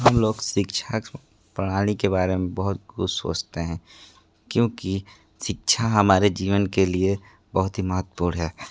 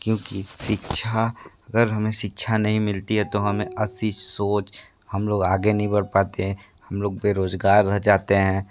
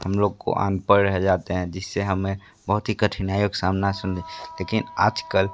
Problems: constant background noise